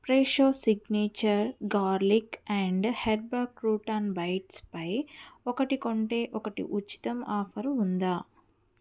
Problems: none marked